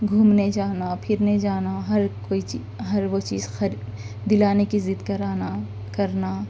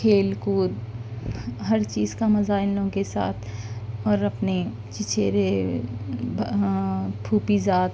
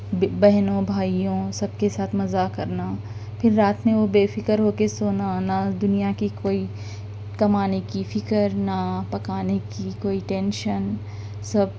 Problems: background sounds at intervals